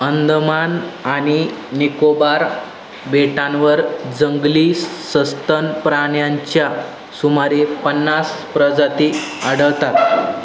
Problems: constant background noise